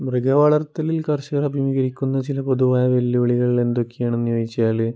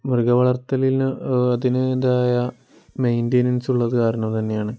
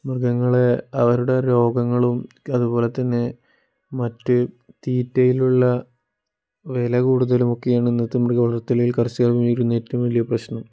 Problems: none marked